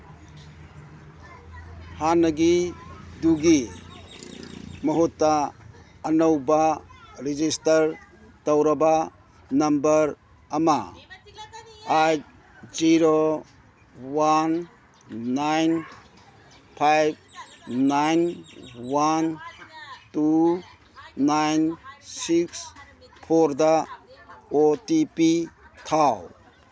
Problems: background sounds at intervals, background conversations at intervals